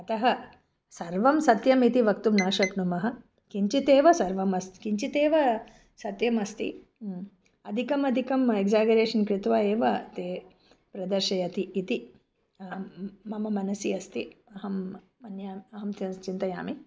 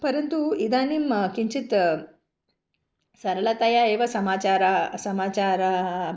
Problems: background sounds at intervals